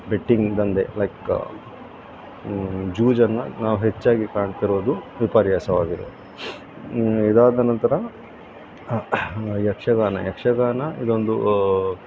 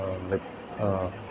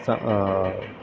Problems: constant background noise